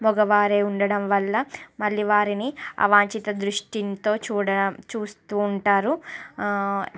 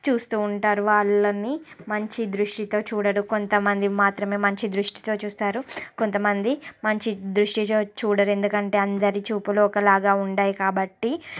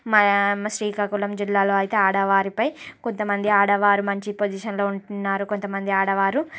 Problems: constant background noise, background conversations at intervals